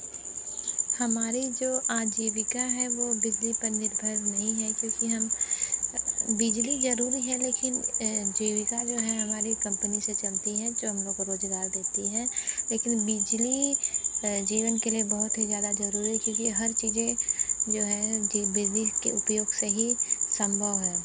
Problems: constant background noise